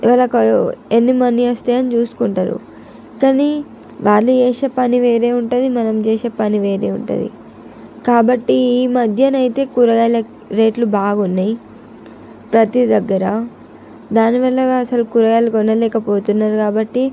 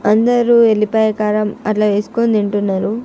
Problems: none marked